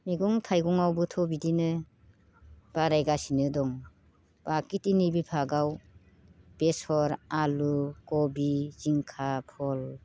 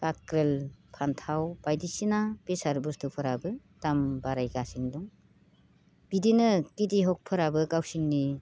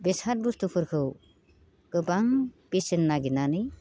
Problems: constant background noise